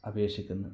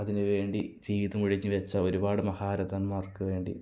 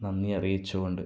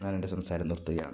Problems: low volume